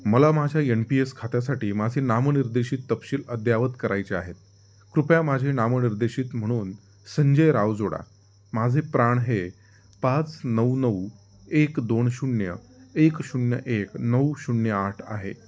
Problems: background sounds at intervals